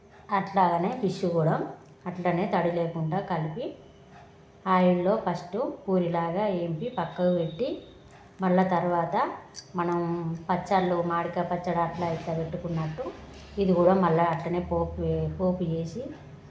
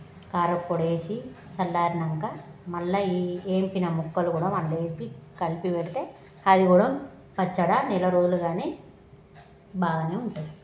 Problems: constant background noise, background conversations at intervals